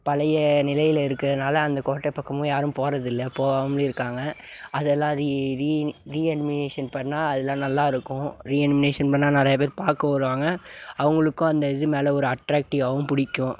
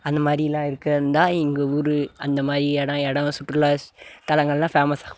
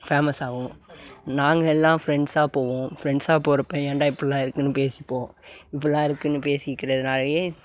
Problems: background sounds at intervals